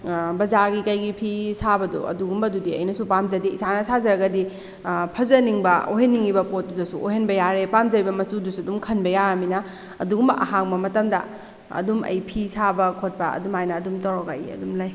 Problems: none marked